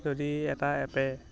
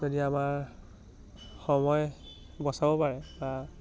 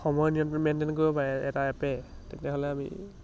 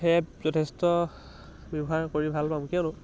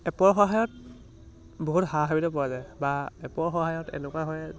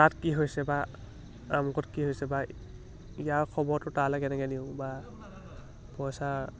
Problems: low volume